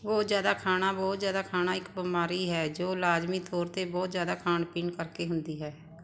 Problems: constant background noise